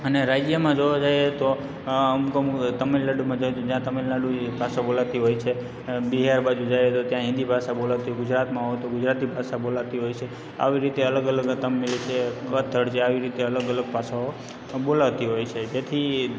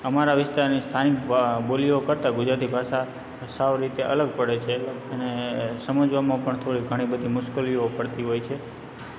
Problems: background sounds at intervals, background conversations at intervals